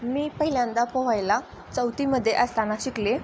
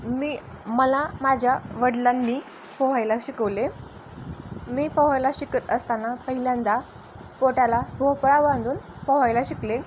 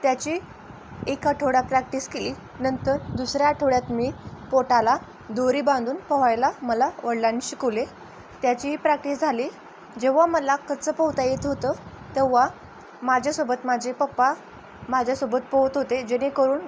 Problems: constant background noise